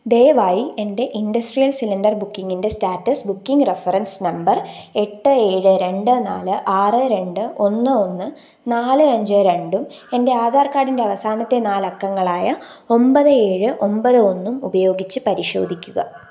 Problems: none marked